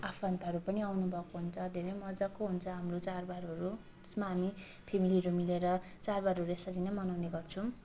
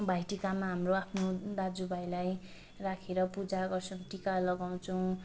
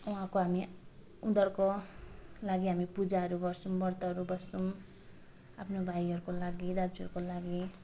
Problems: constant background noise, background conversations at intervals